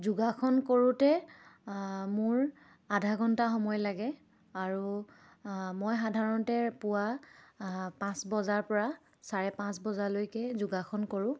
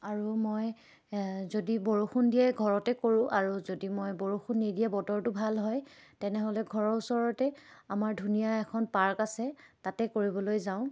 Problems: none marked